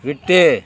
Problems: none marked